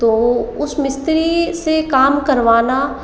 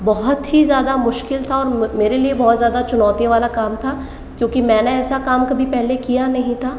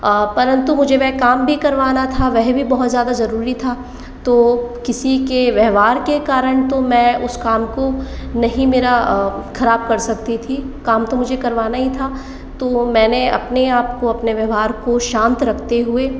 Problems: echo